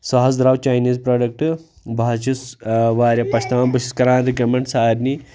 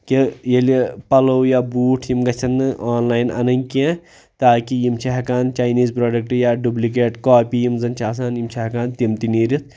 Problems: none marked